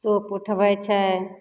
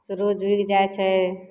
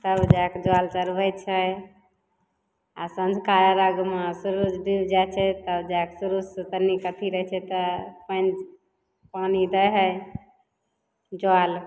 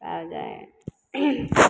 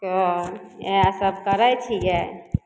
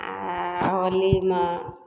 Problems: none marked